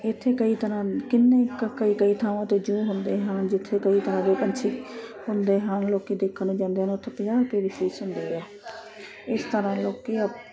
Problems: constant background noise